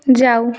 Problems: none marked